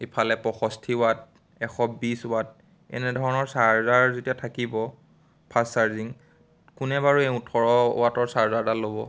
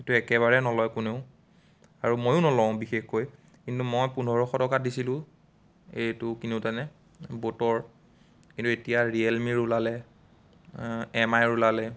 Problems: none marked